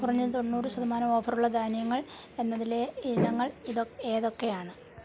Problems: none marked